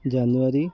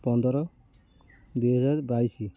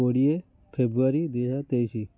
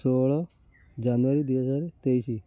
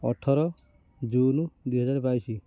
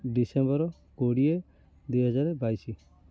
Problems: none marked